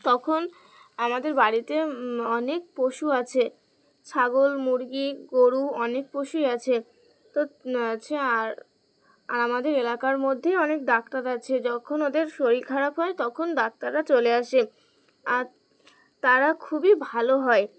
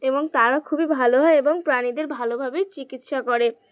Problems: constant background noise